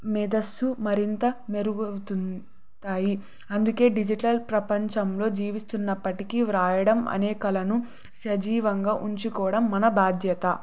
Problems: none marked